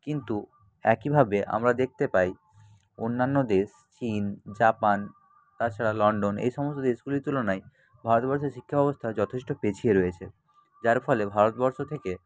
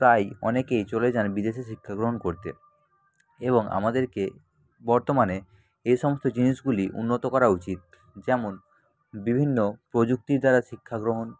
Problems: constant background noise, background conversations at intervals